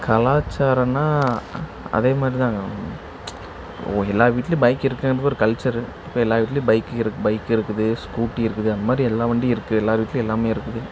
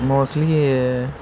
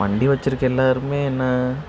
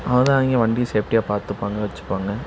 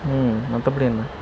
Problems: constant background noise